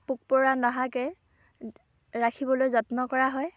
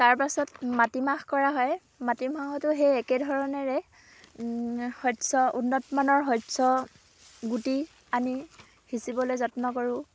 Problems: background sounds at intervals, background conversations at intervals